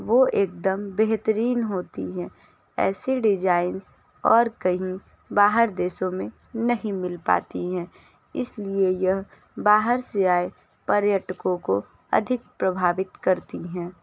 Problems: background sounds at intervals